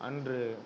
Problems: none marked